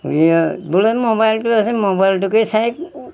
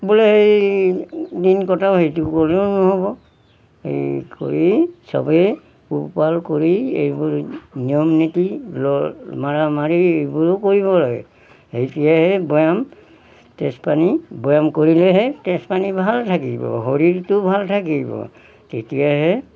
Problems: background sounds at intervals